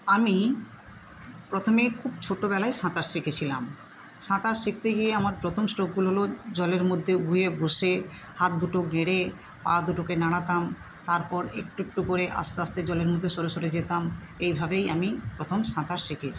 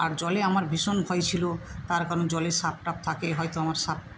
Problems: constant background noise